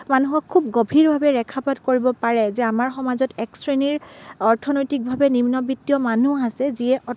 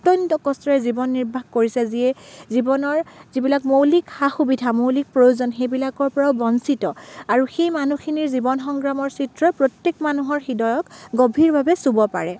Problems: none marked